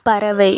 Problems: continuous background conversations